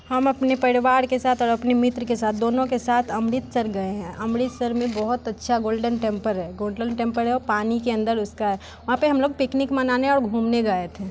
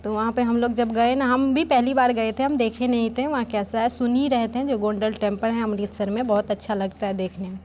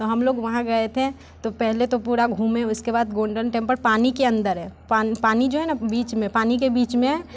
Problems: none marked